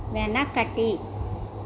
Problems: none marked